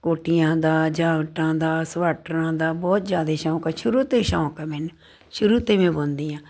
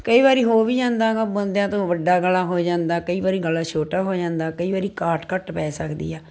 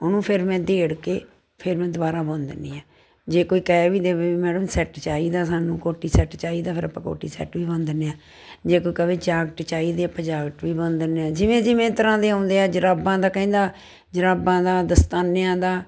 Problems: constant background noise